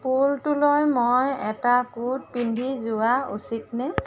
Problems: constant background noise, background conversations at intervals